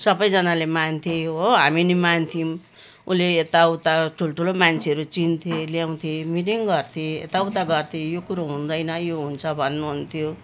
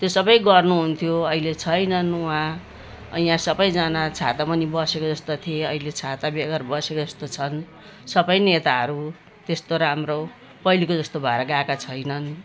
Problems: constant background noise